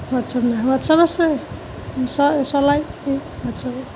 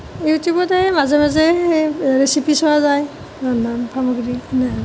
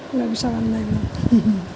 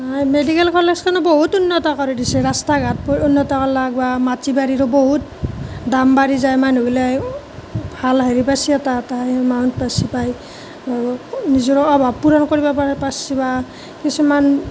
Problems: constant background noise